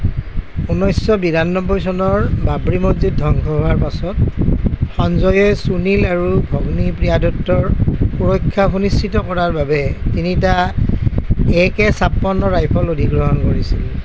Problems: constant background noise